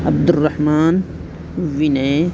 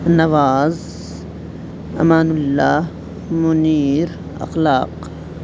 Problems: constant background noise